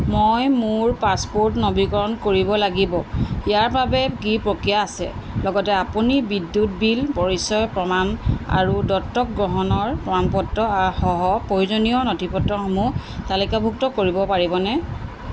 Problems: constant background noise